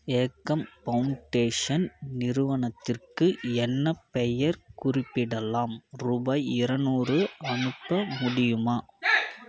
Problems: background conversations at intervals